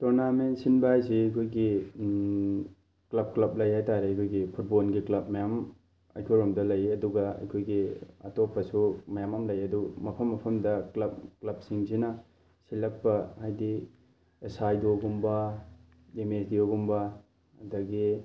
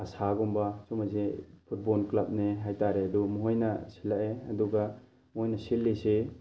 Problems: background sounds at intervals